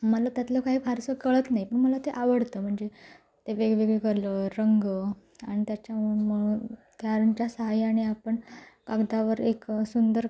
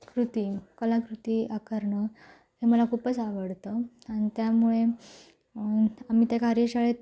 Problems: background sounds at intervals